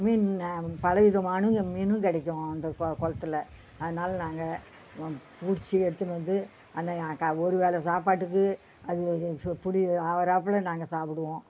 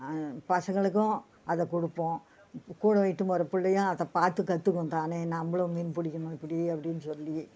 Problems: background sounds at intervals